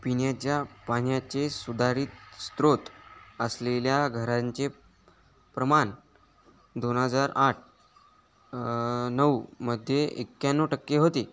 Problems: background sounds at intervals, background conversations at intervals